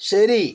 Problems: none marked